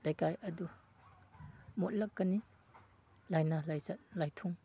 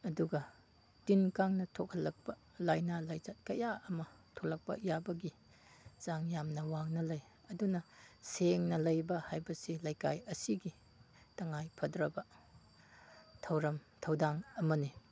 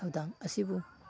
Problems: background sounds at intervals, background conversations at intervals